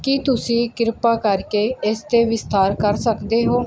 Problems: background sounds at intervals